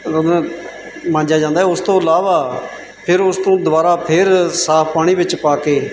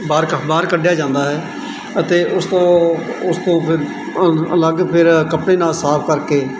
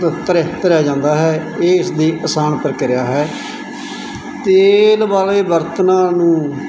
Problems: constant background noise